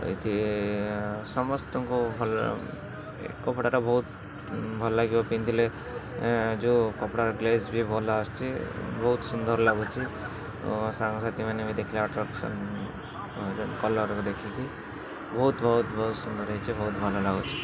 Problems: constant background noise, continuous background conversations